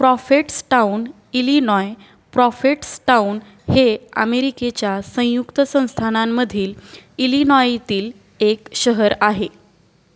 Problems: none marked